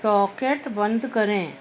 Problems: constant background noise